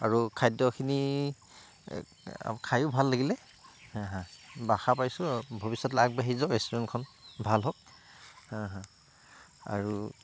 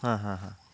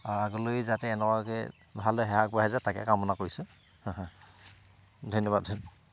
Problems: constant background noise